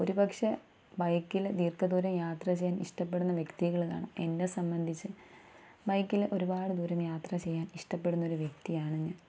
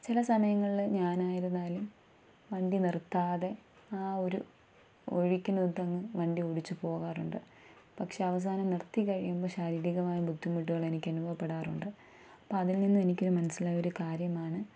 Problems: low volume